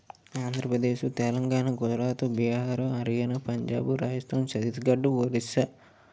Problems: none marked